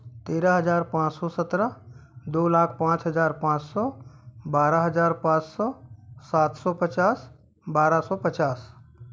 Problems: none marked